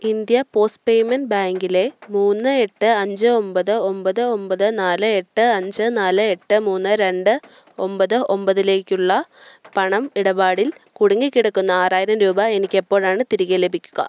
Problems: none marked